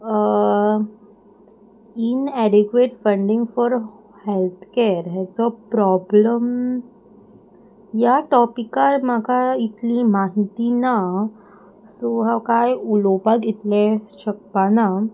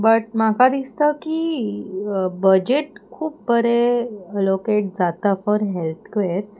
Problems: none marked